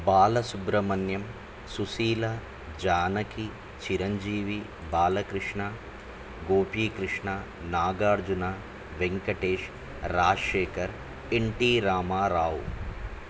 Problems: constant background noise